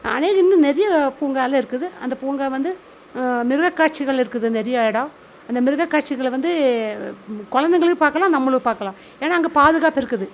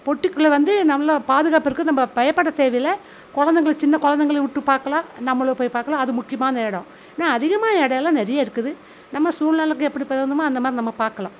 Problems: constant background noise